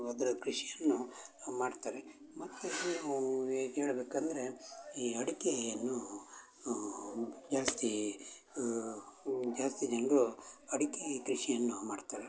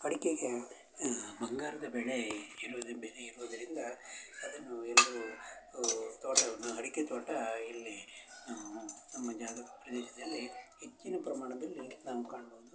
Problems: constant background noise, background conversations at intervals